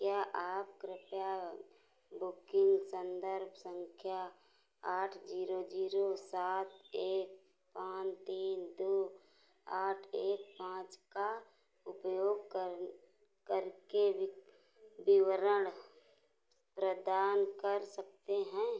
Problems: none marked